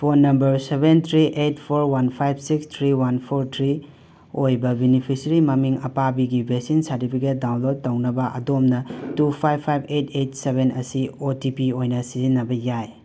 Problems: background sounds at intervals